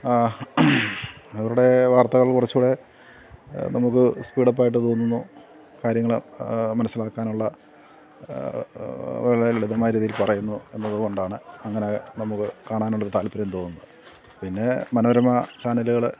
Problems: none marked